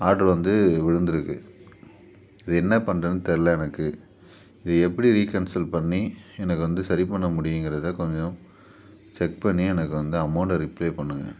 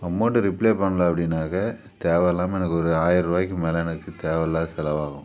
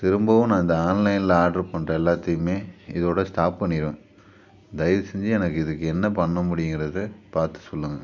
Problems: none marked